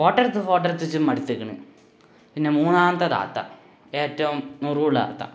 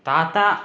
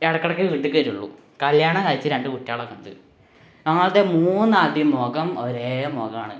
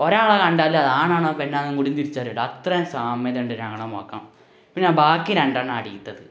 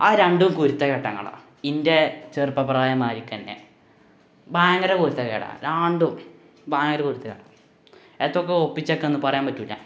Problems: background sounds at intervals